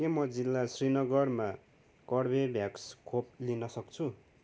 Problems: none marked